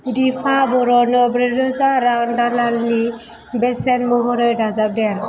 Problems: none marked